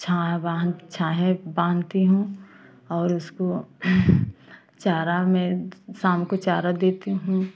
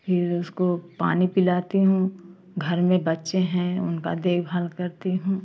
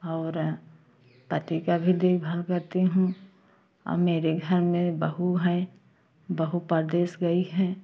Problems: constant background noise, continuous background conversations